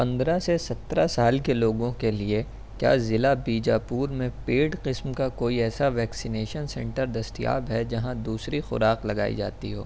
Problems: constant background noise